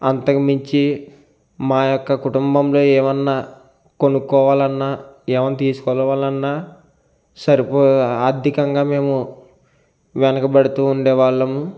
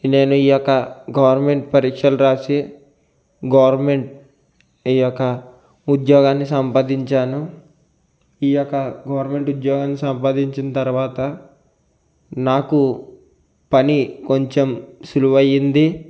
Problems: constant background noise